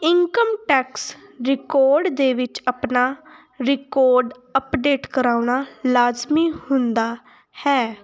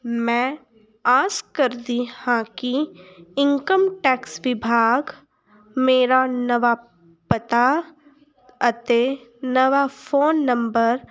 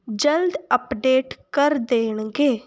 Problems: continuous background conversations